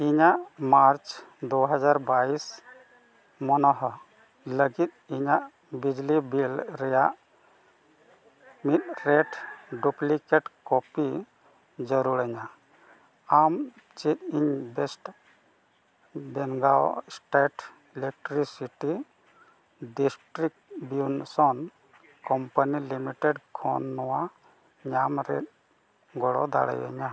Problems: constant background noise, low volume